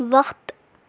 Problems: constant background noise